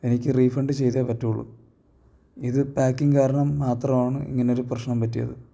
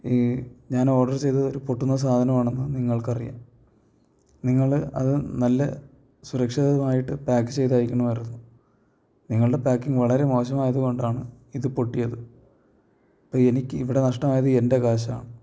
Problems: low volume